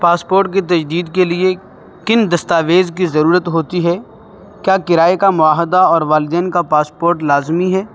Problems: background sounds at intervals